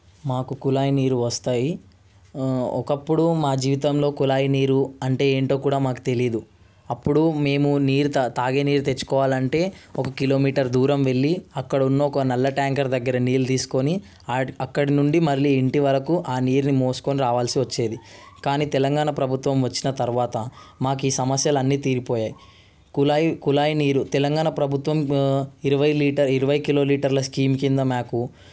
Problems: constant background noise